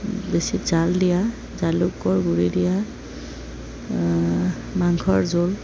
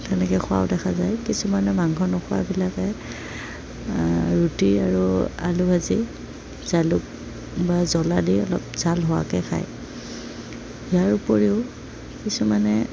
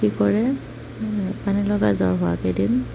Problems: none marked